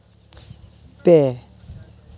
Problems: constant background noise